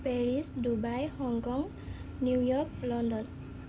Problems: constant background noise